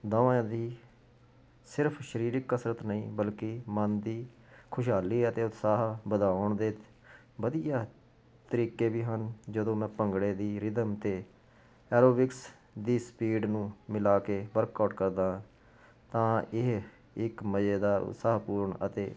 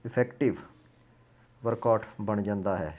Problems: constant background noise